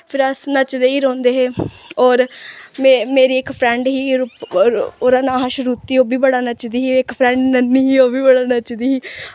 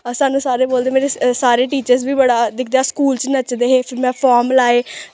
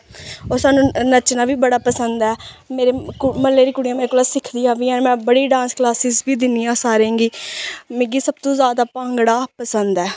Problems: background sounds at intervals